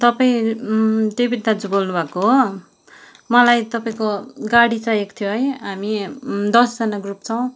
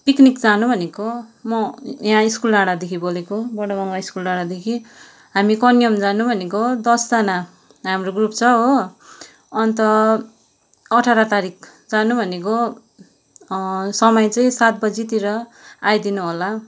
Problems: background sounds at intervals